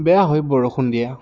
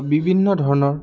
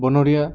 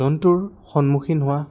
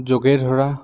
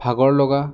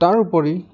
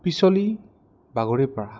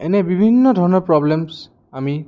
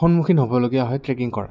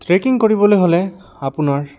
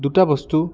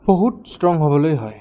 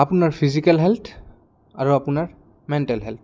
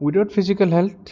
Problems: background sounds at intervals